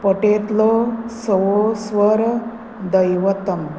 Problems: constant background noise